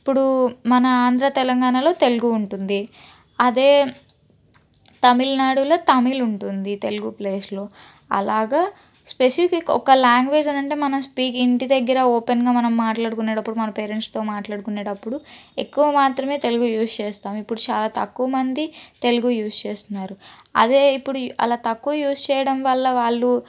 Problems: none marked